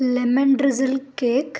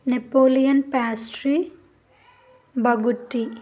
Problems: none marked